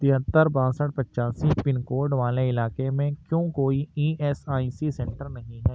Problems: constant background noise